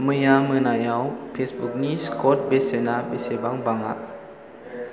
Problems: constant background noise